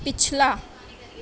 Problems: constant background noise